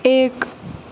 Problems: constant background noise